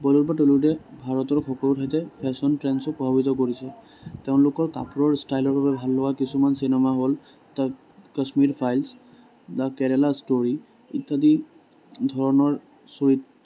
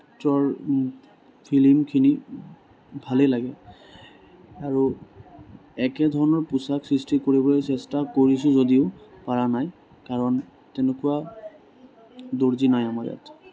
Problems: background conversations at intervals